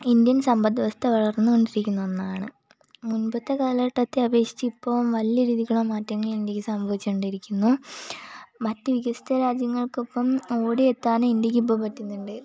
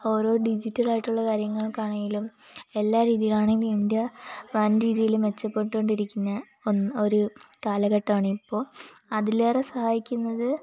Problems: constant background noise, low volume